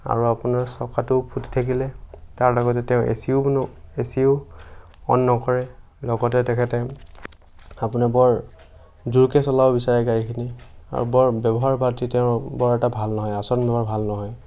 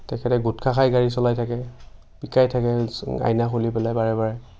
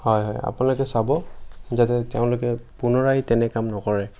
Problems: none marked